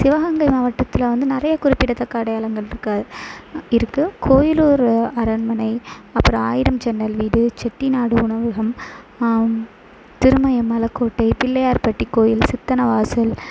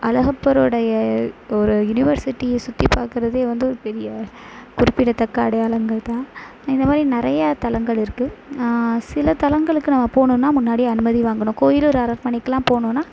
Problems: constant background noise